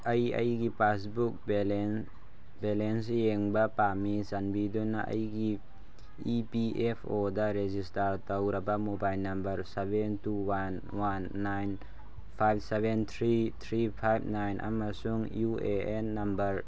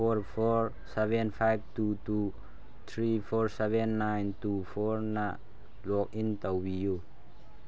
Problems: low volume